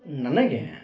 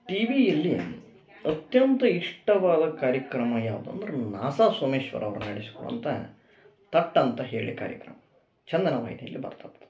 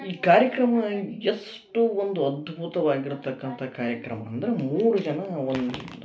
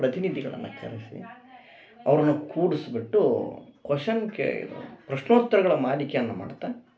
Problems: none marked